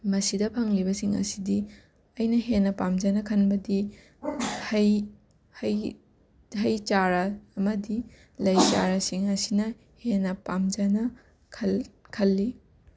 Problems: background sounds at intervals, background conversations at intervals